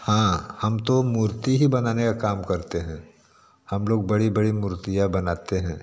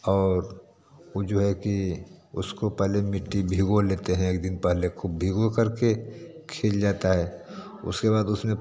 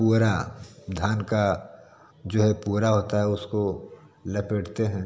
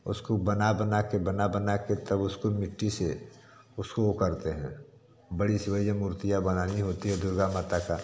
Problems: constant background noise